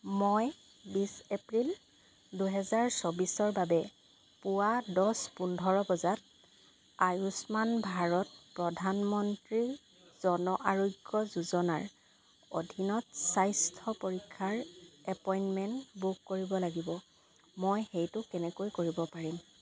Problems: constant background noise